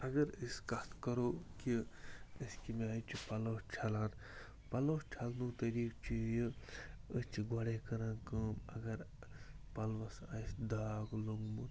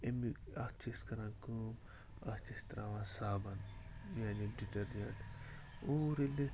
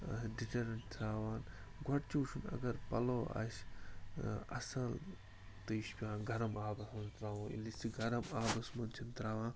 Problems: constant background noise